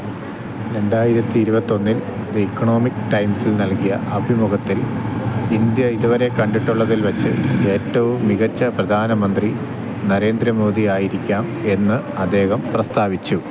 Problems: constant background noise